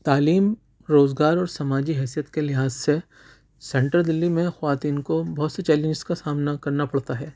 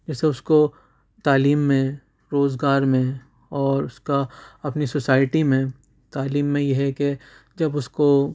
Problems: none marked